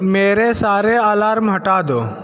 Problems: constant background noise, background conversations at intervals